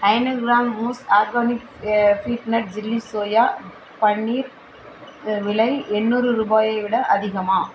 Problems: constant background noise